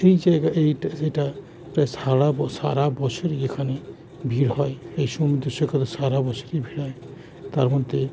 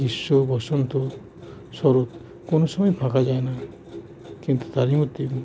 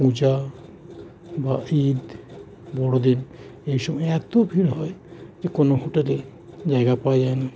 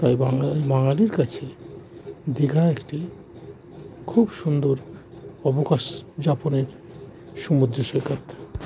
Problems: none marked